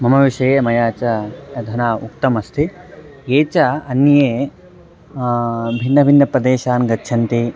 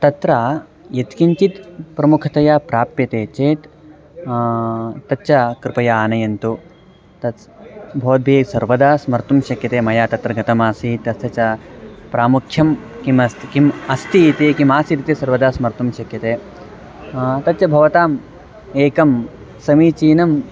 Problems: none marked